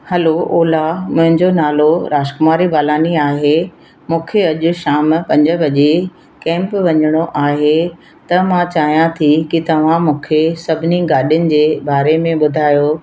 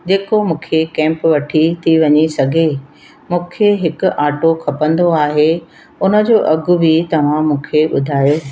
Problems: constant background noise